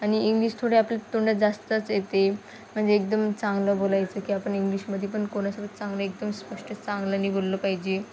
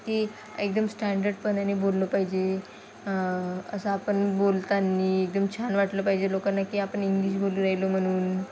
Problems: none marked